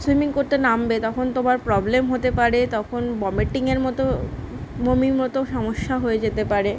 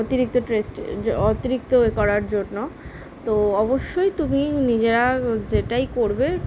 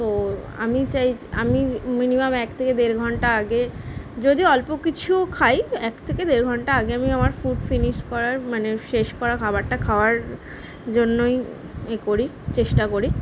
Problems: background sounds at intervals